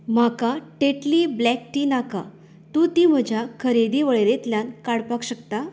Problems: background sounds at intervals